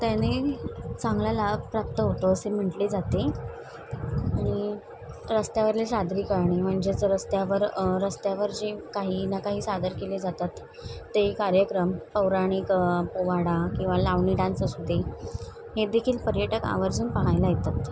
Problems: constant background noise, background conversations at intervals